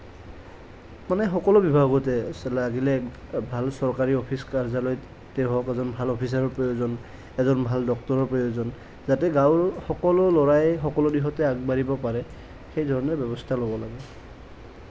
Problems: none marked